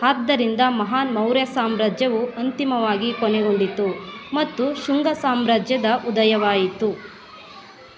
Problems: constant background noise